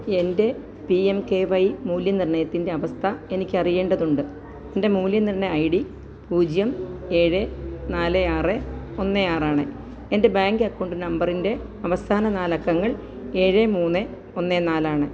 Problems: low volume